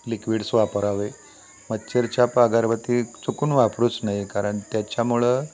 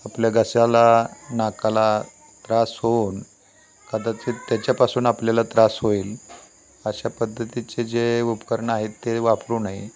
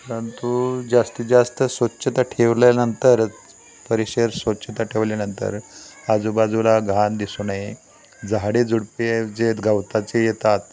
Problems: constant background noise, continuous background conversations